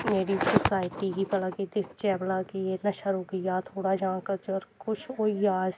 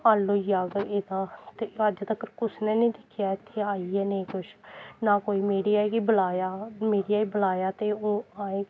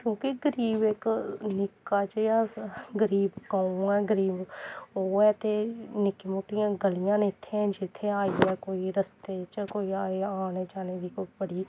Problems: none marked